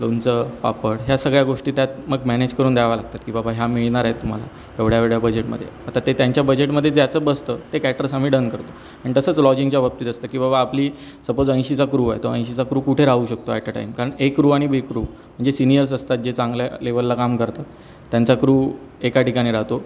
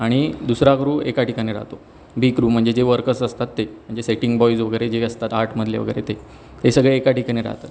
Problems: constant background noise